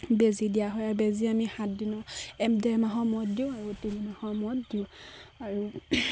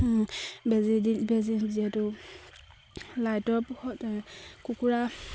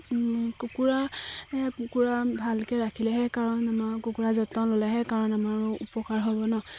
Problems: constant background noise, background conversations at intervals